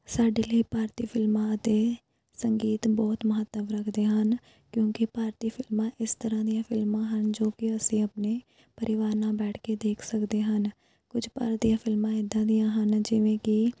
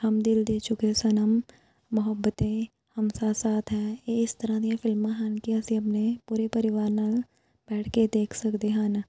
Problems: background sounds at intervals